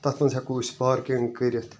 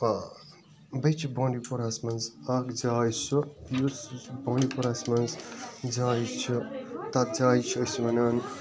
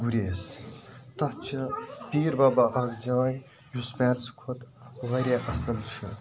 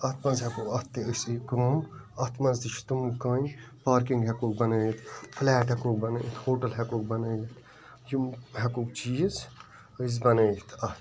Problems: background sounds at intervals, continuous background conversations